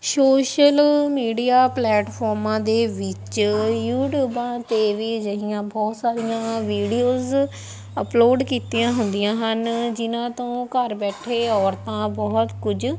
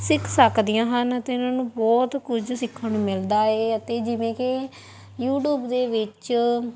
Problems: background sounds at intervals, background conversations at intervals